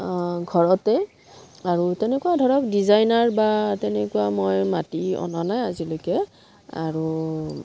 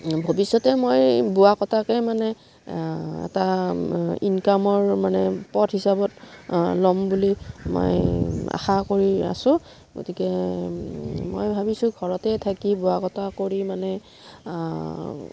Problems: low volume